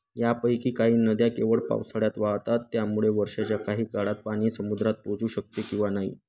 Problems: constant background noise